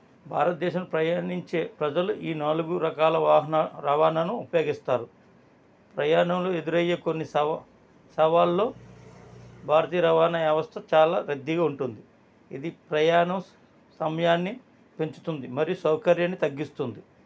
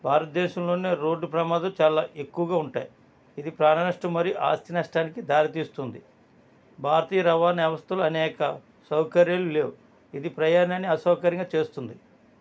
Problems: none marked